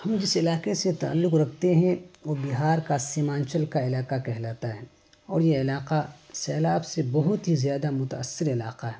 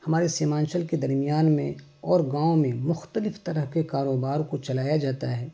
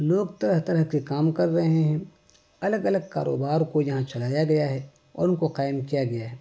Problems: constant background noise